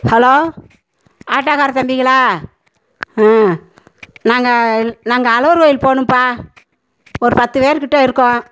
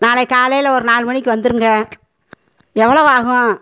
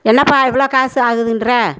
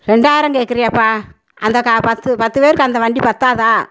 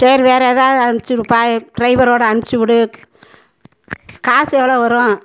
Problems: constant background noise